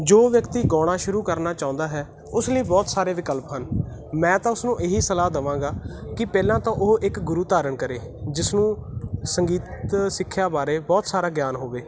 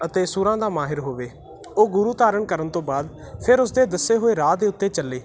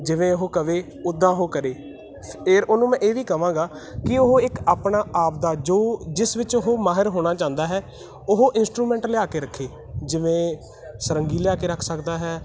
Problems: none marked